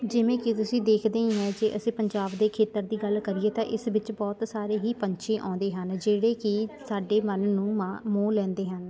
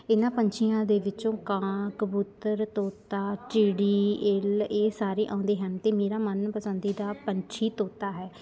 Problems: continuous background conversations